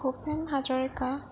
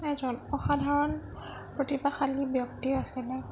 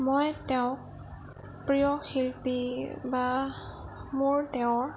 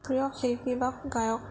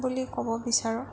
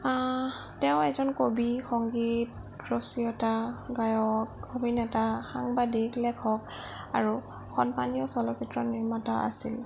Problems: none marked